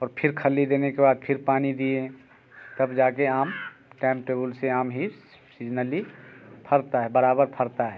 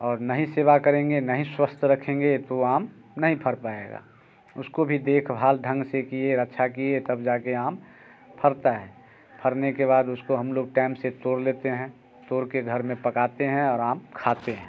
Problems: constant background noise